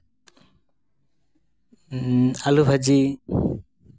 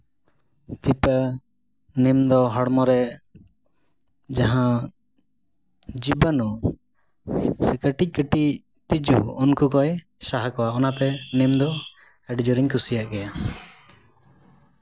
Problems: background sounds at intervals, background conversations at intervals